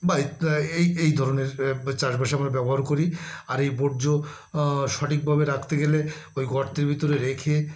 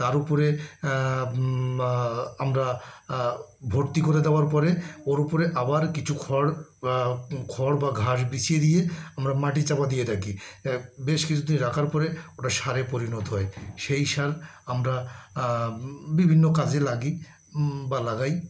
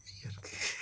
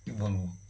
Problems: constant background noise, background conversations at intervals